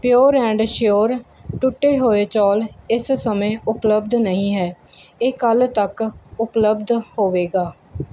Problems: background sounds at intervals